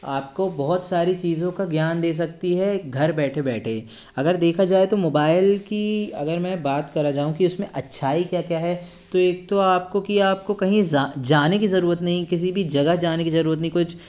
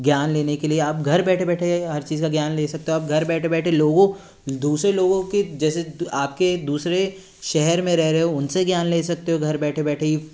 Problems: background sounds at intervals